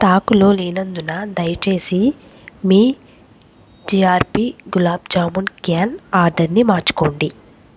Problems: constant background noise